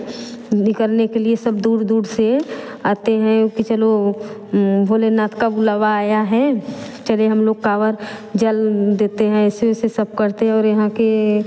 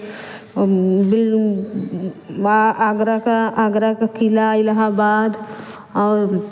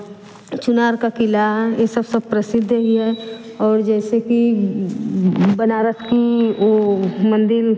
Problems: none marked